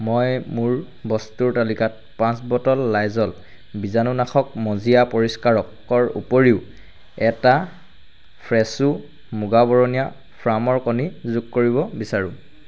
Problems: none marked